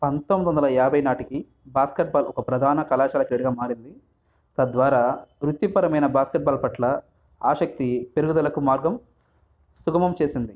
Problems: background sounds at intervals